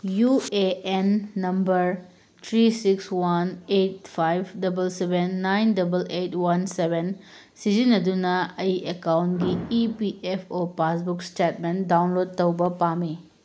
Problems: background sounds at intervals